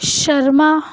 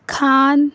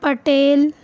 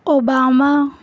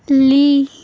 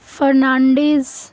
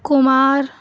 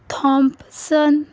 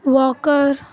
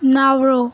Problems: constant background noise